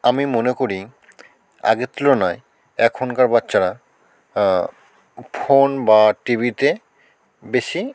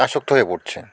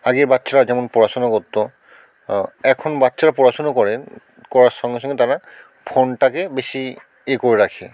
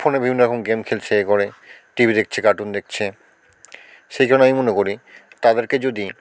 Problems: constant background noise